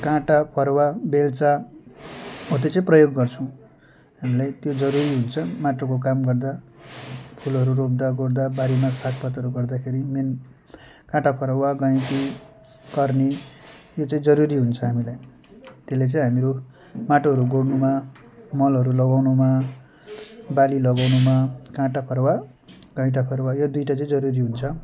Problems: background sounds at intervals